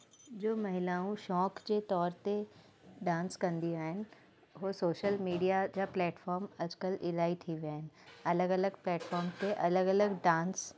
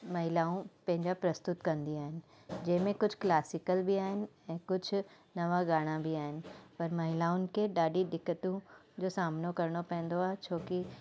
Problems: constant background noise